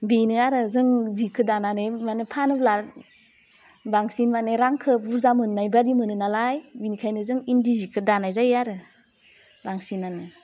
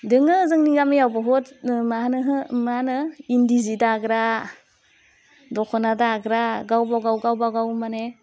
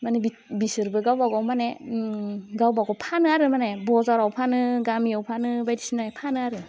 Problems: none marked